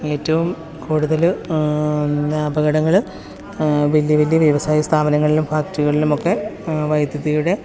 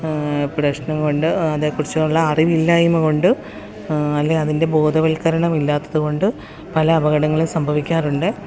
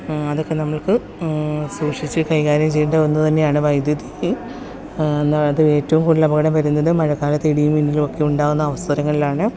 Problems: constant background noise